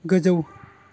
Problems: constant background noise